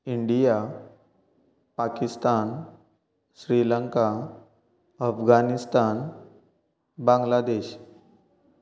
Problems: none marked